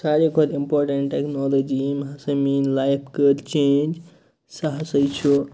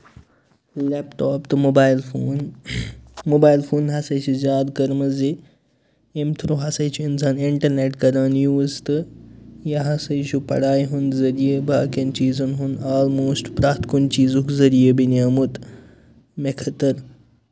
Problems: none marked